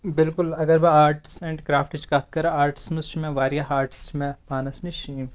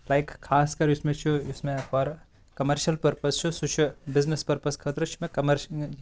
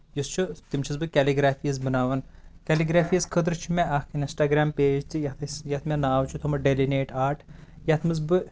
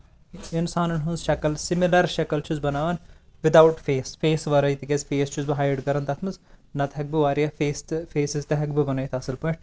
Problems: constant background noise